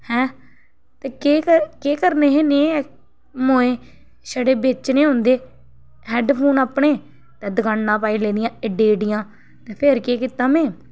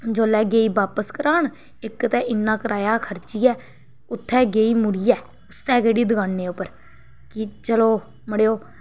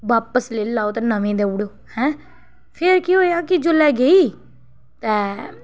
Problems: background sounds at intervals